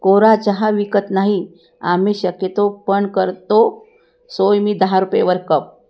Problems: none marked